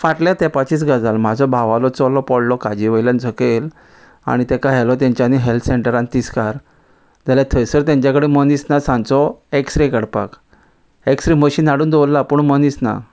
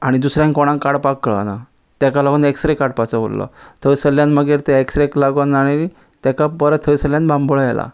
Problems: none marked